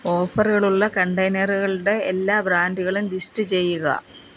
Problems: background sounds at intervals